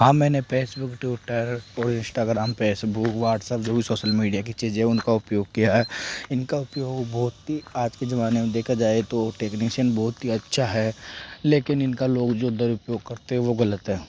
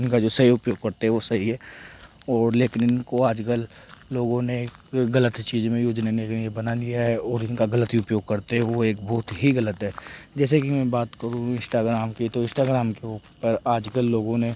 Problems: background sounds at intervals